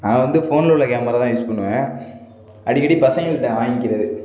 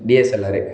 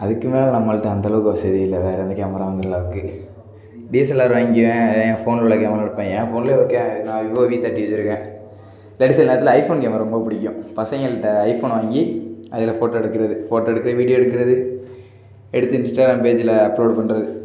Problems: background sounds at intervals